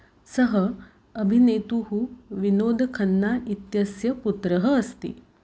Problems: none marked